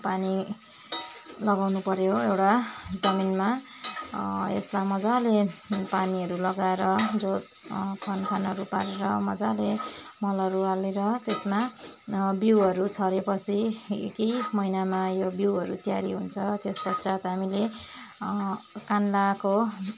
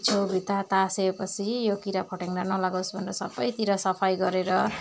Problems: constant background noise